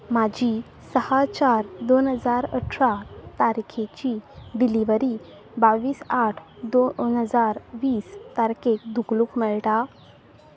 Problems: constant background noise